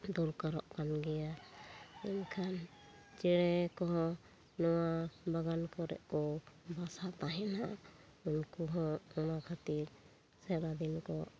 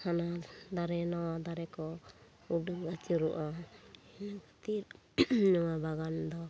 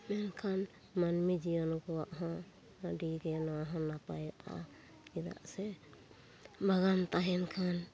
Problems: background sounds at intervals